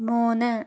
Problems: low volume